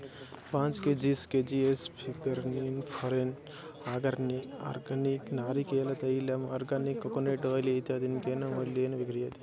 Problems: background sounds at intervals